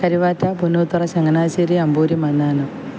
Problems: none marked